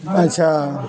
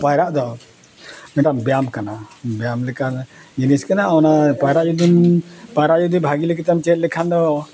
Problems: background conversations at intervals